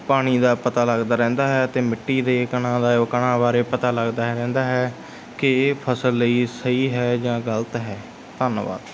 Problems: none marked